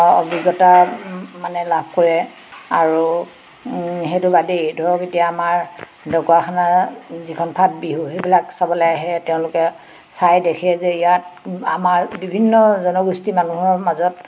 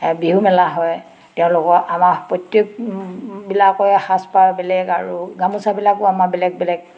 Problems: constant background noise, background conversations at intervals